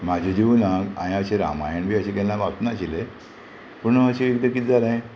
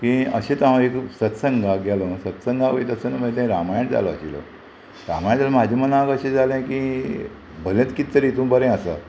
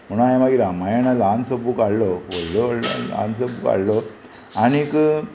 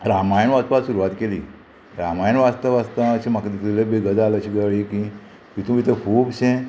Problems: constant background noise